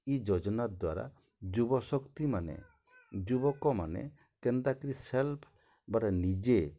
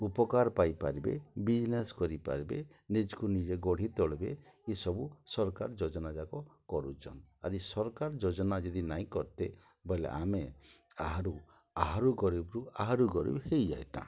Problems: low volume